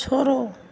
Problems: low volume